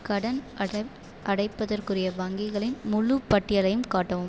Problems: none marked